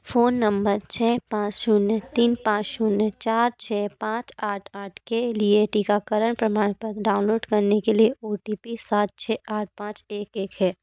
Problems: background sounds at intervals, background conversations at intervals